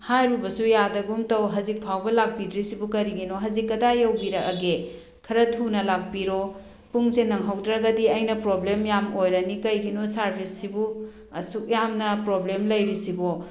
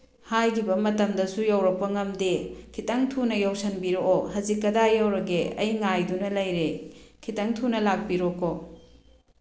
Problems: none marked